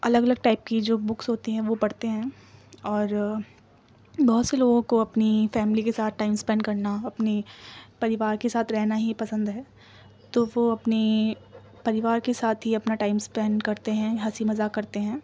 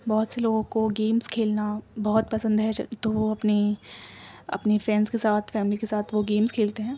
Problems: background sounds at intervals